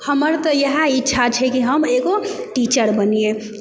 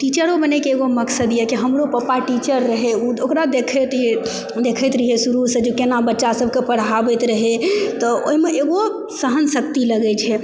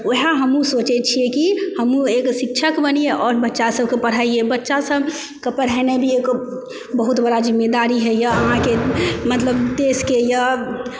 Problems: background sounds at intervals, background conversations at intervals